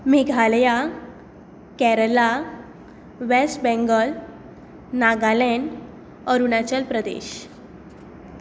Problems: constant background noise